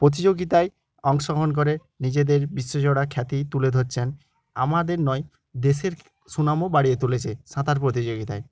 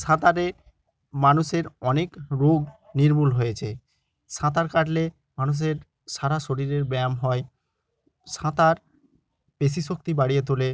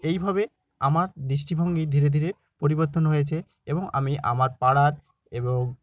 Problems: continuous background conversations